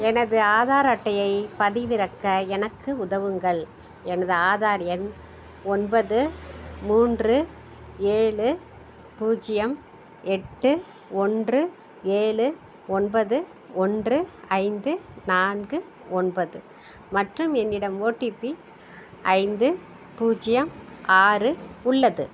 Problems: background sounds at intervals, background conversations at intervals